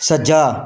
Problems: background sounds at intervals